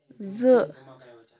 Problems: background conversations at intervals